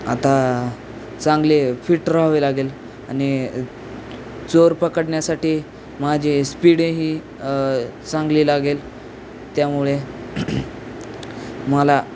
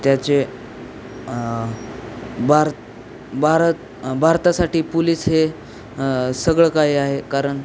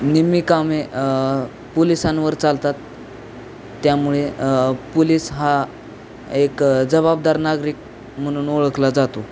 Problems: constant background noise